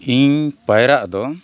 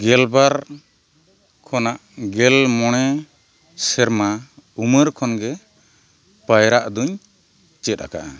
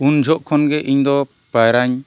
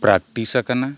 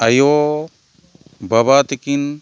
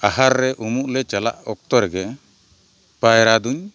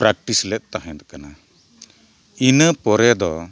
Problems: none marked